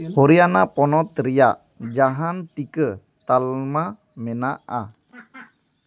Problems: background sounds at intervals